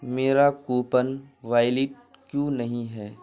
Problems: constant background noise